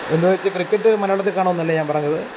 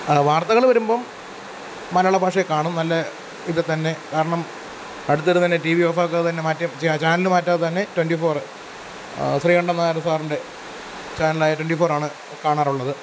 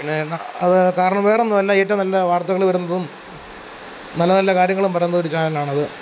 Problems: constant background noise